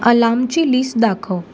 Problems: constant background noise